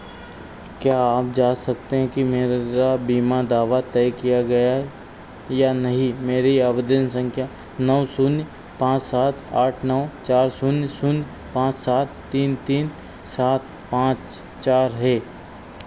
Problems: none marked